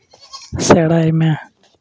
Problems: background sounds at intervals